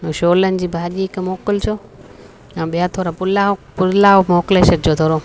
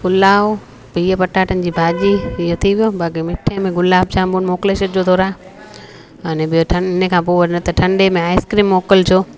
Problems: constant background noise, echo